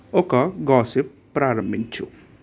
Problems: none marked